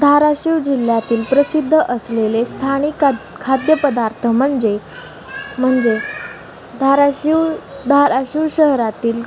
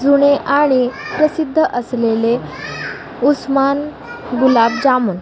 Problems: none marked